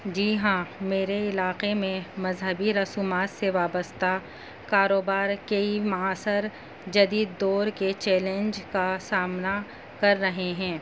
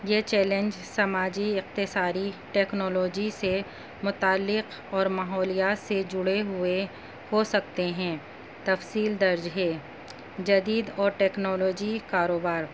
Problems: constant background noise